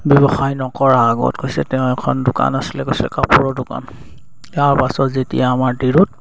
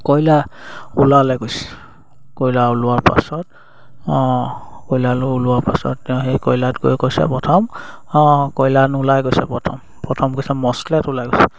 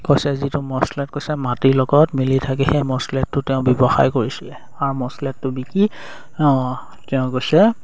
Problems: none marked